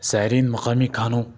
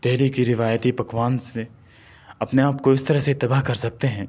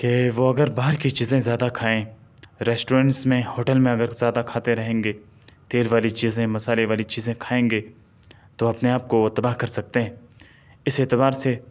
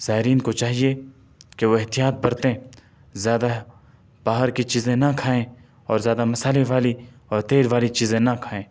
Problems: none marked